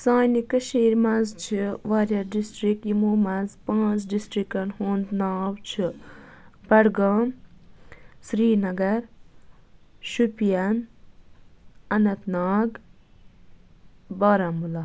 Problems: background sounds at intervals